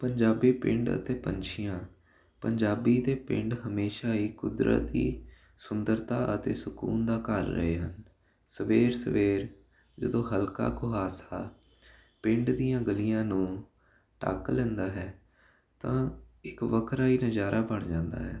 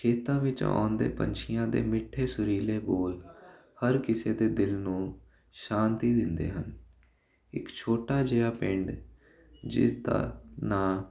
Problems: constant background noise